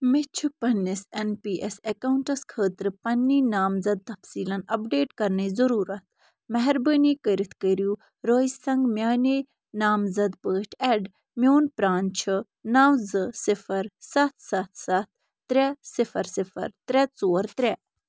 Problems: none marked